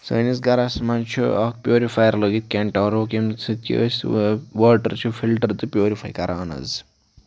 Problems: background sounds at intervals